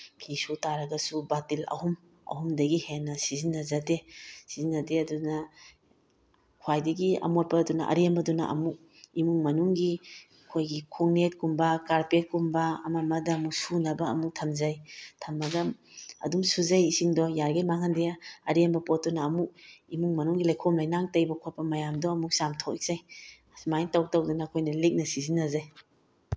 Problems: none marked